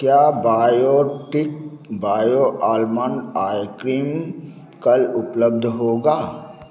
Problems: constant background noise